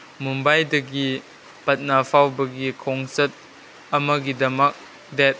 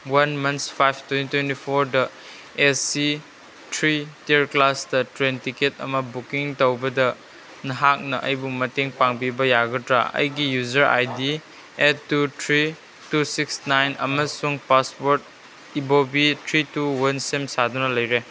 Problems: background sounds at intervals